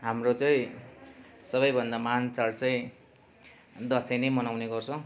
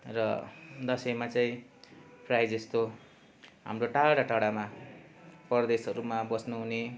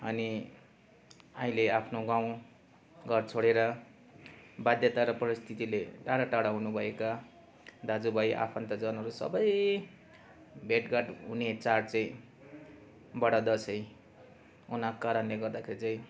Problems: none marked